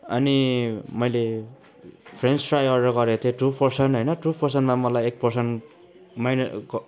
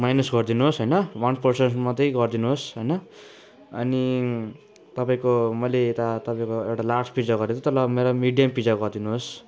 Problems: none marked